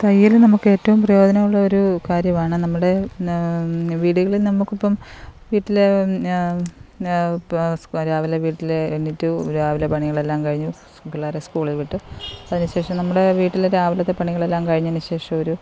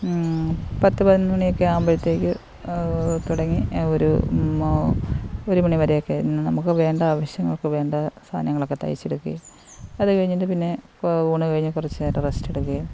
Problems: constant background noise